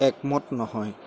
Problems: none marked